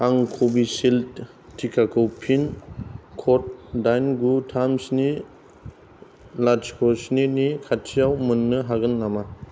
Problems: background sounds at intervals